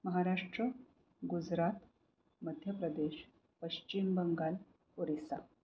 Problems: low volume